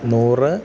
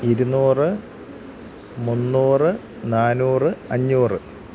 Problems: constant background noise, low volume